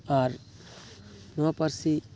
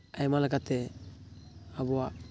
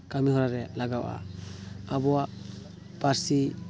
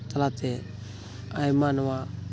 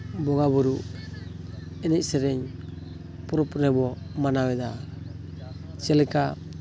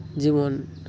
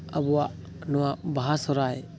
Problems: background sounds at intervals